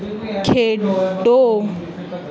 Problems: none marked